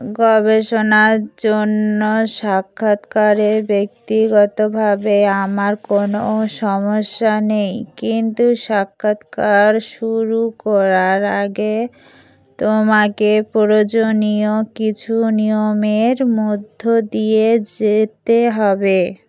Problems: background sounds at intervals